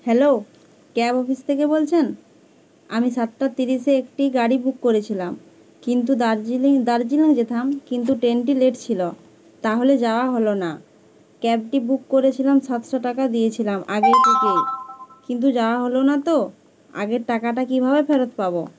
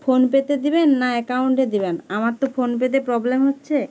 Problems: constant background noise